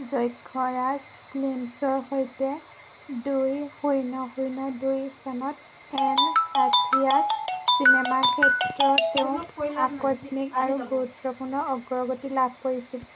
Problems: constant background noise